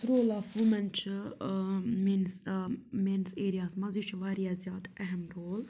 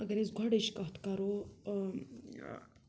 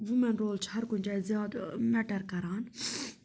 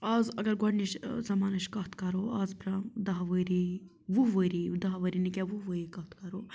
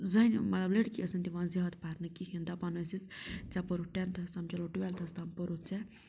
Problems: none marked